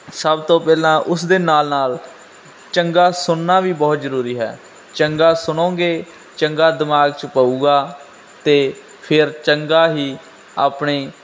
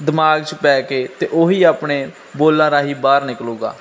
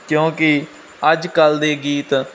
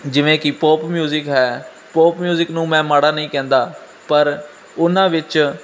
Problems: constant background noise